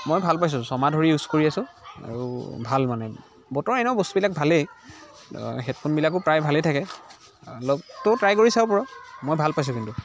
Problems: constant background noise, continuous background conversations